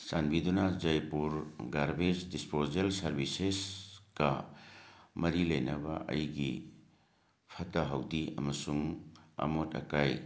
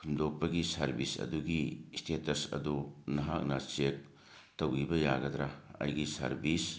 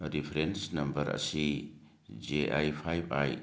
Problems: background sounds at intervals